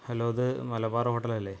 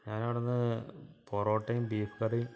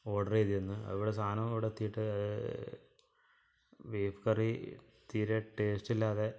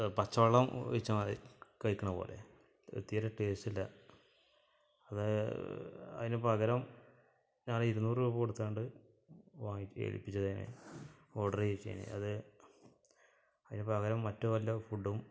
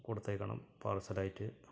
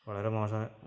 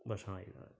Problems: low volume